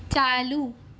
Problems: none marked